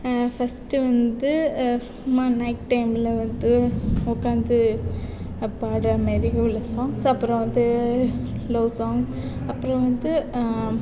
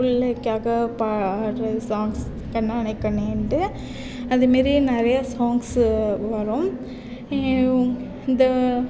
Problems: background sounds at intervals